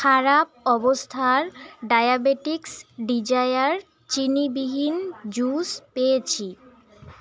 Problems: constant background noise, background conversations at intervals